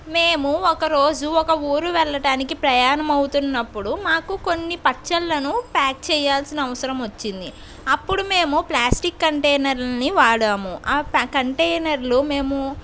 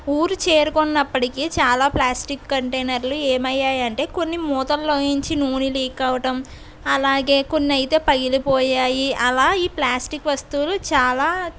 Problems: constant background noise